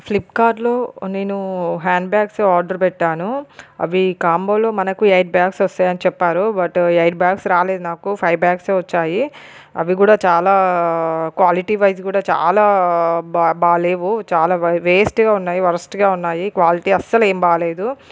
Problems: none marked